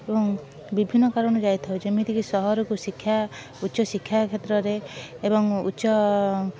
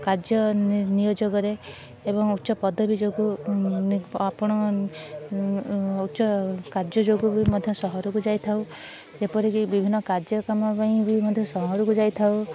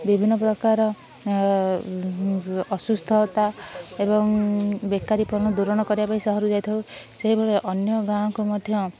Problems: none marked